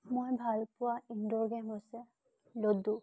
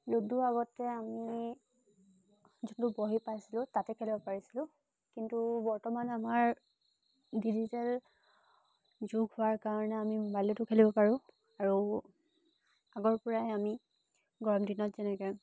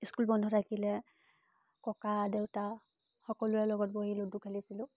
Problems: constant background noise